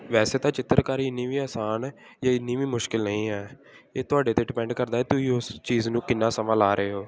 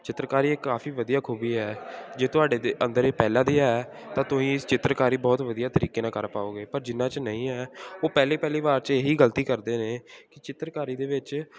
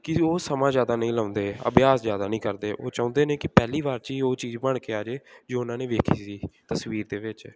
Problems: continuous background conversations